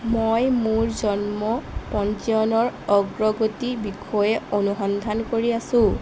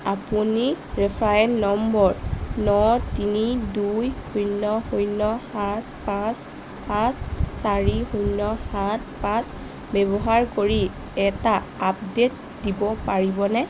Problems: constant background noise